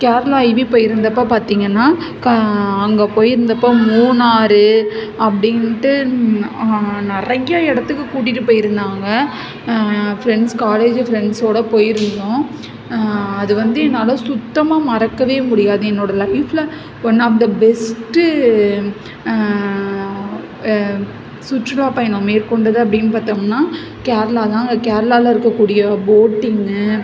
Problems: none marked